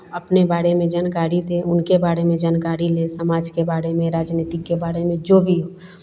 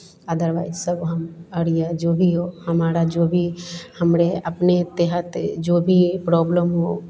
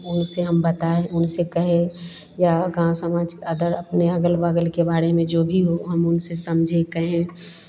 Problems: none marked